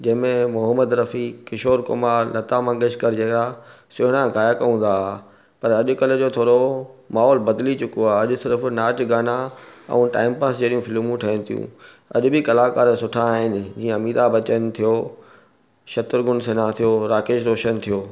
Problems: none marked